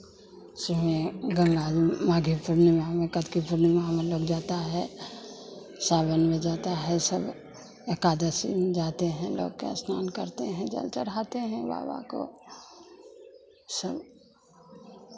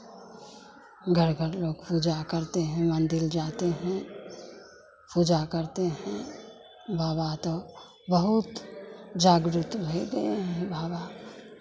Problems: none marked